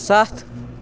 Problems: background sounds at intervals